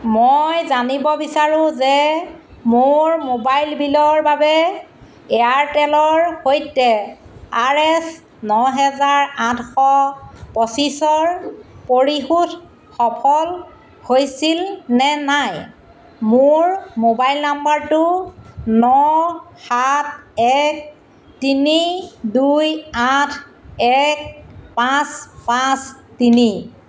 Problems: constant background noise